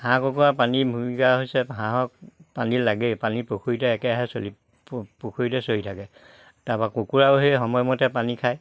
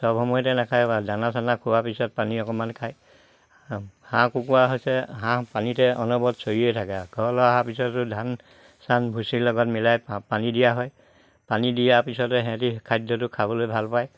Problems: none marked